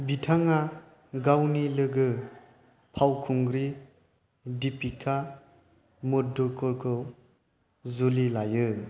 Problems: none marked